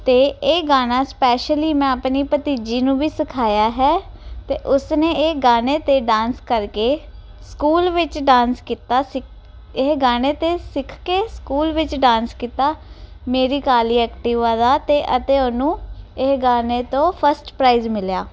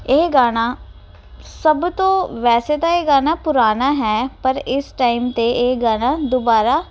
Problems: none marked